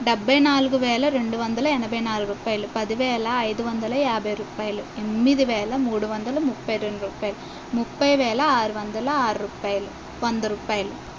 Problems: none marked